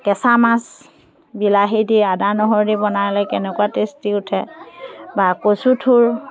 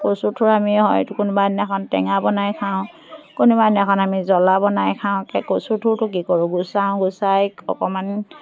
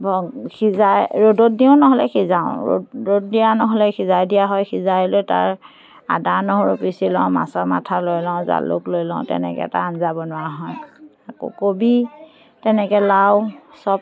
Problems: constant background noise, continuous background conversations